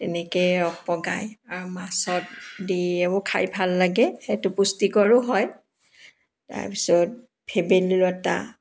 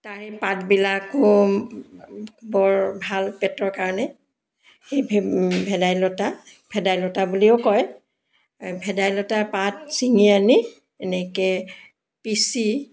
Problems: background sounds at intervals